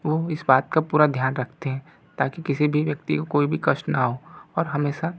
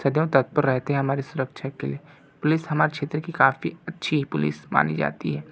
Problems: none marked